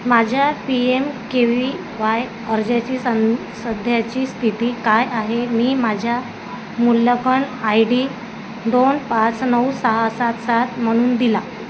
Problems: constant background noise